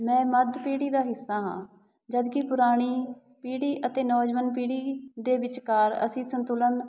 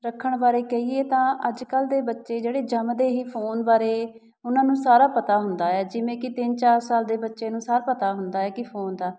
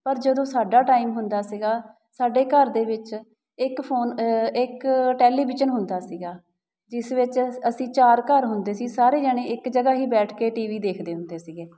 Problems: background sounds at intervals